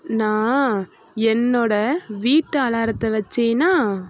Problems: constant background noise